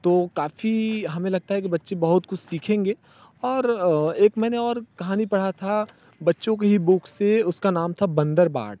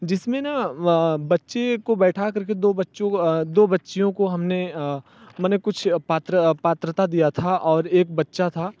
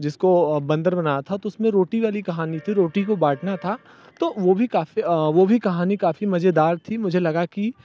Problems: none marked